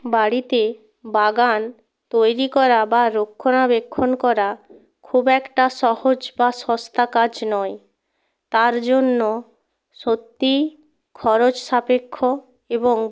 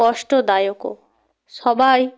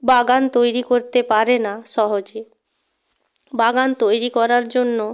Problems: background sounds at intervals